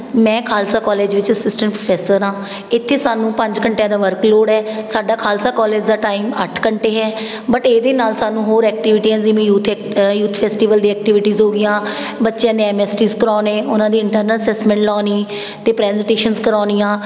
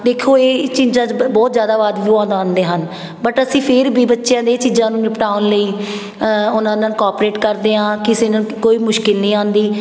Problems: background sounds at intervals, background conversations at intervals